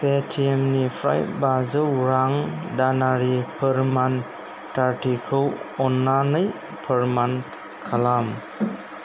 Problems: constant background noise